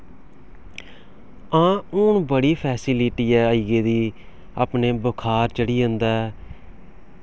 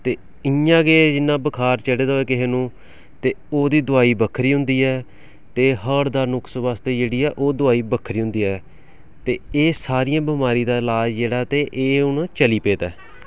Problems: background sounds at intervals